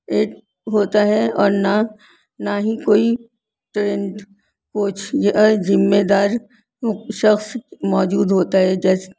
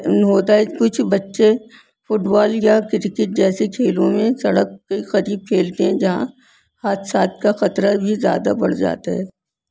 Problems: constant background noise